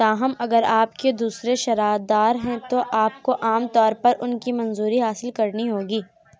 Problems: background sounds at intervals, background conversations at intervals